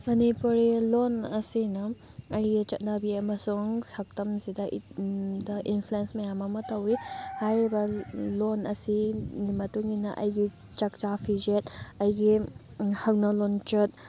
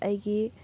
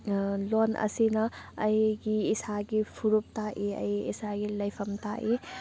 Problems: background sounds at intervals